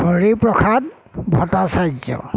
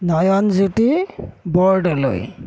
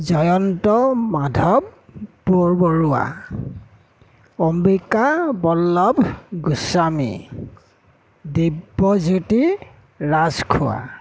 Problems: background sounds at intervals